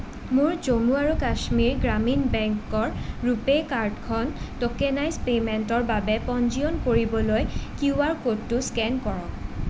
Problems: constant background noise